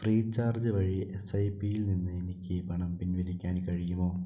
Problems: low volume